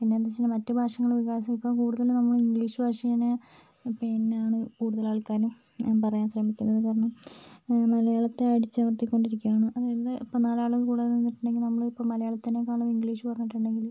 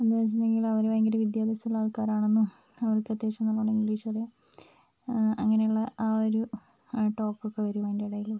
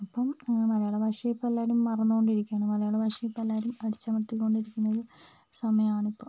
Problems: constant background noise, low volume